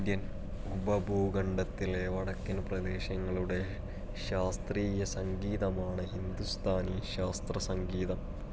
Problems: background sounds at intervals, low volume